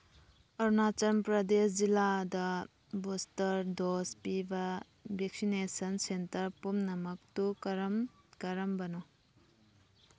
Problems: none marked